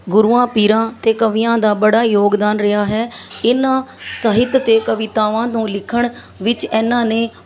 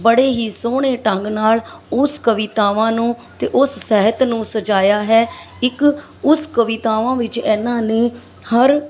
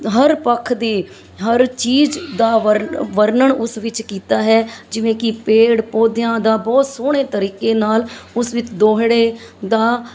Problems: constant background noise, background conversations at intervals